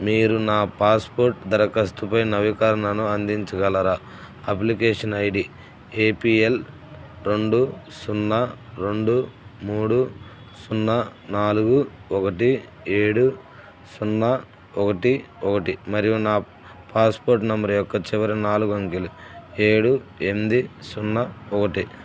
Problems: none marked